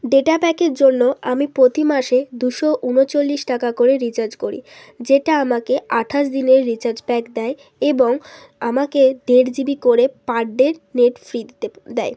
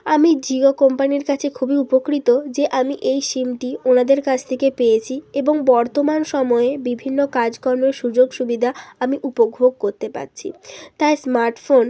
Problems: background sounds at intervals